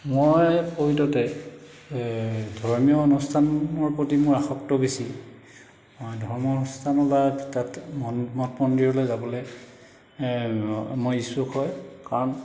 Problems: background sounds at intervals